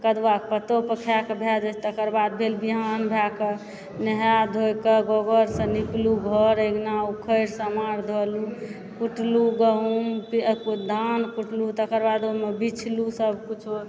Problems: background sounds at intervals, background conversations at intervals